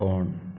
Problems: none marked